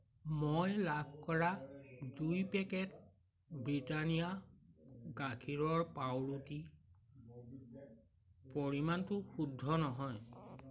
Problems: none marked